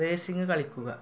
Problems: low volume